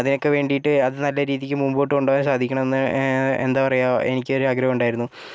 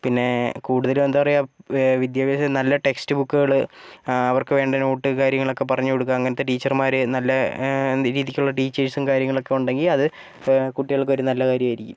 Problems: background sounds at intervals